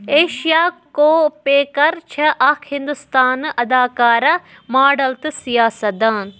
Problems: none marked